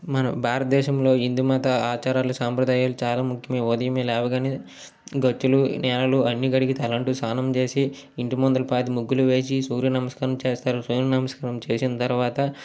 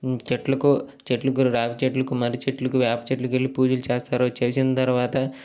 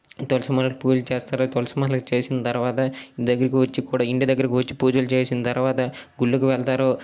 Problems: none marked